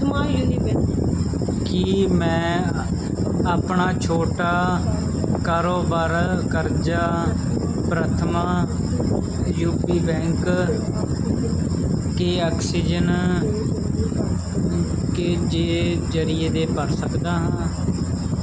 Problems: constant background noise, background conversations at intervals